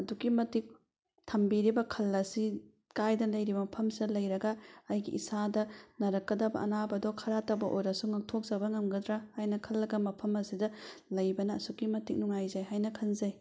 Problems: none marked